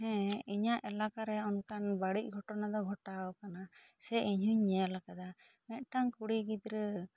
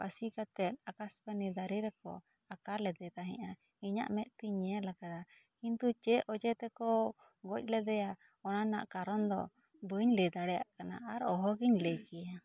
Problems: low volume